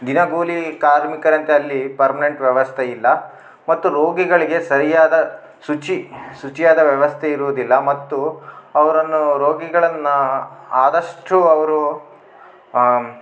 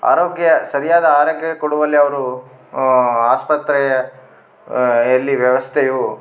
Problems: none marked